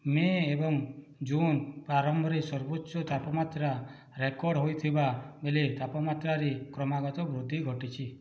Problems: low volume